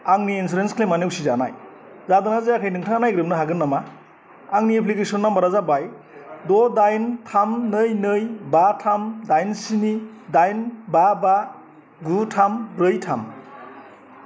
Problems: constant background noise